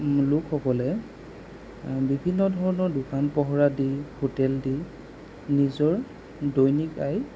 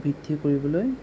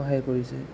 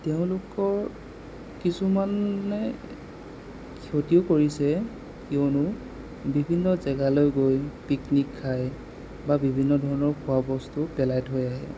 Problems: constant background noise